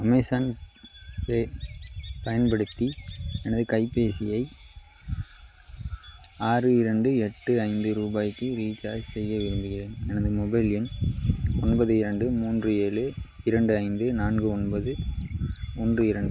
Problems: none marked